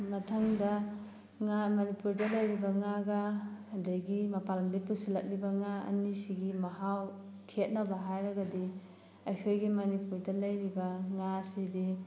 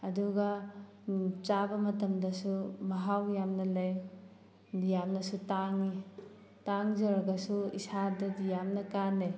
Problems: background sounds at intervals